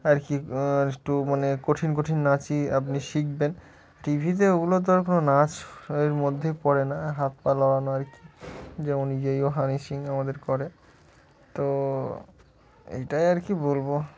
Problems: none marked